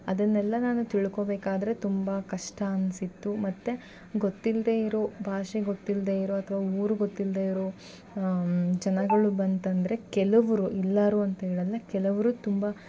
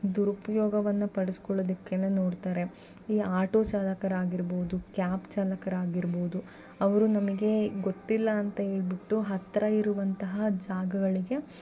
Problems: none marked